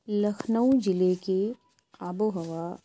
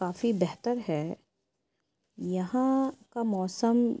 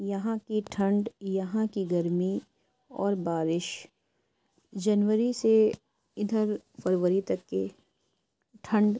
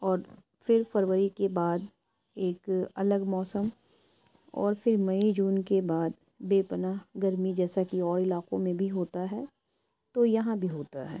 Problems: none marked